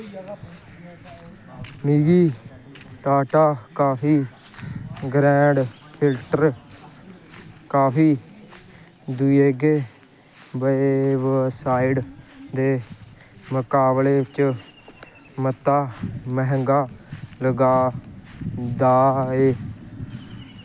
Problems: constant background noise